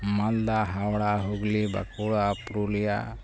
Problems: none marked